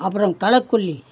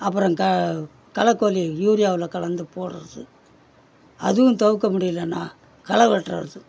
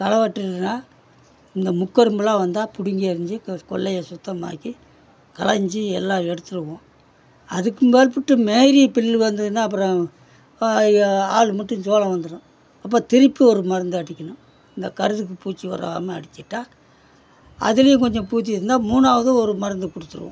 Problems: background conversations at intervals